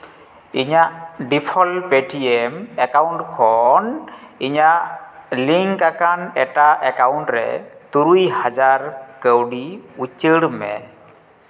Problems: background sounds at intervals, echo